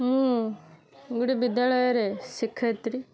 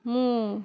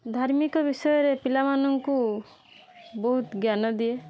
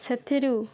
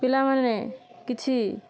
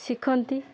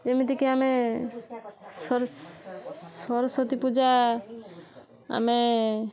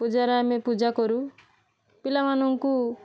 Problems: constant background noise